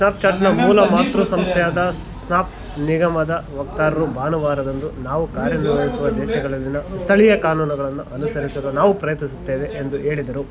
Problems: background sounds at intervals